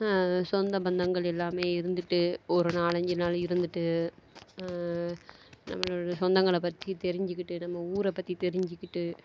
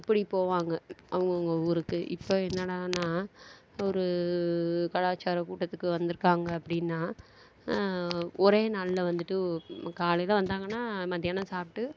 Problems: background sounds at intervals